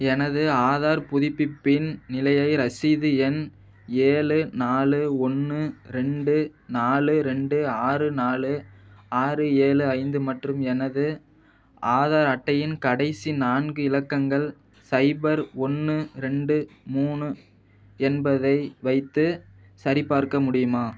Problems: none marked